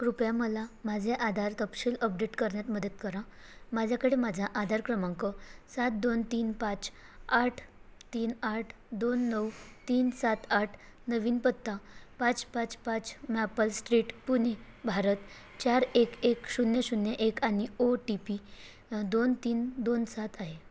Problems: constant background noise, background conversations at intervals